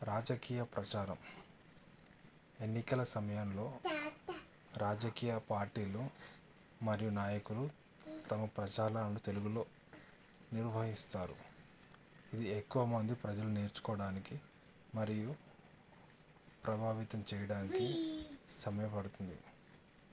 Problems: none marked